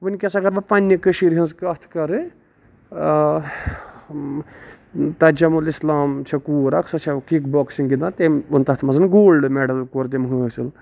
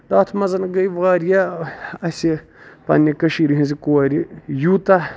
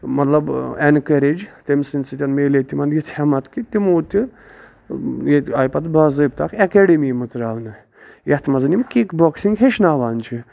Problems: none marked